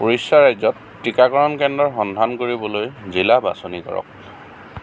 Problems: constant background noise